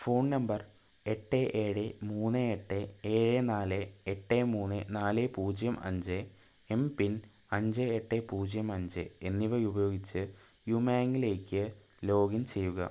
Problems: low volume